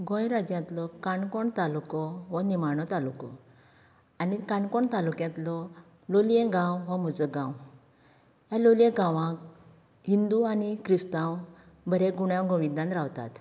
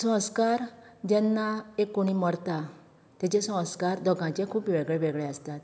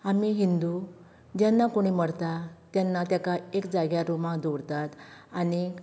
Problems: none marked